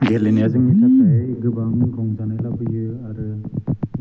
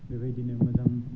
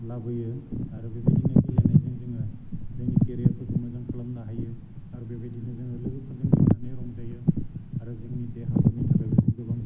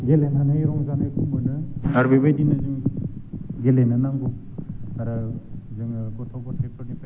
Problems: constant background noise